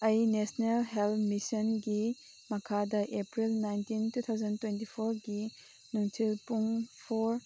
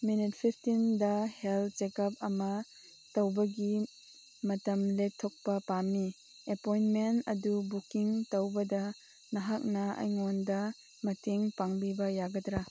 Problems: background sounds at intervals